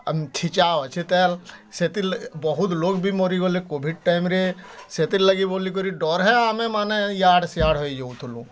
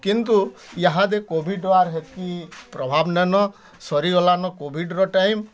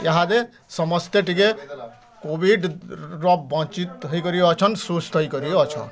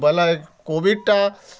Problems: constant background noise, continuous background conversations